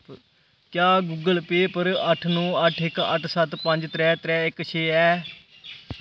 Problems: constant background noise